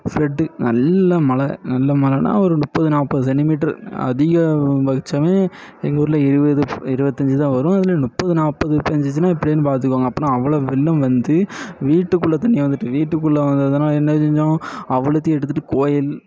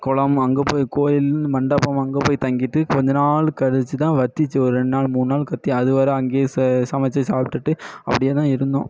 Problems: echo